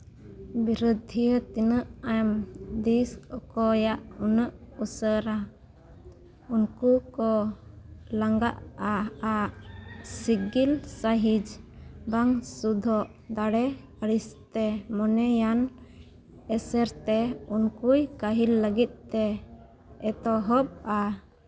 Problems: background sounds at intervals